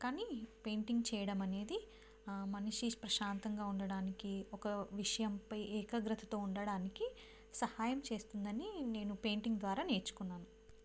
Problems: low volume